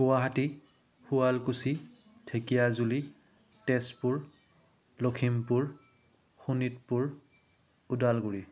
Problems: none marked